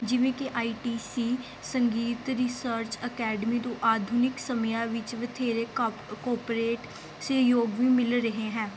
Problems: none marked